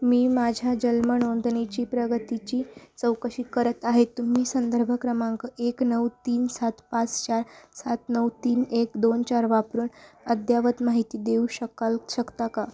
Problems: background conversations at intervals